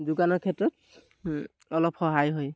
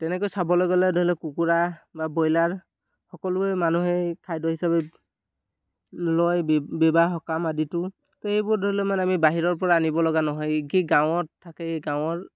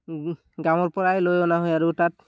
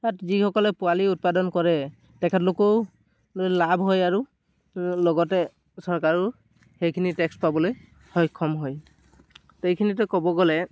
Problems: background sounds at intervals